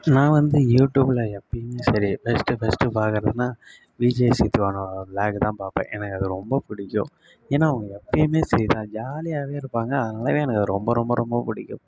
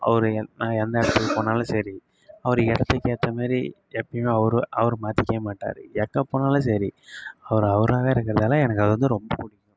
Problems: low volume